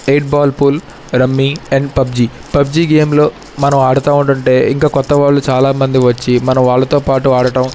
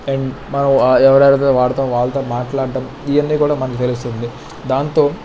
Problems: constant background noise